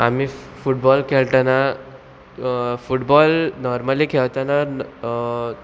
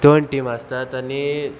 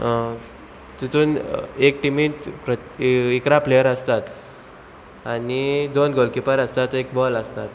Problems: none marked